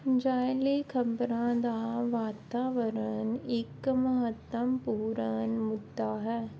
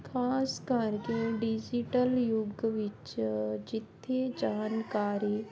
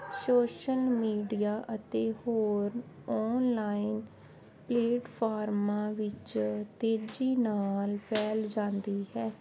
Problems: constant background noise